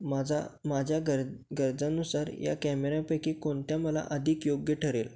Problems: background sounds at intervals